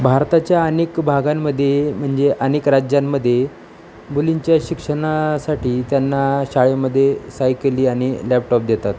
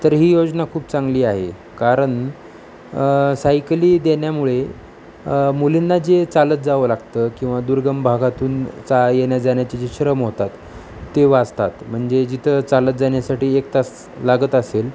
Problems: constant background noise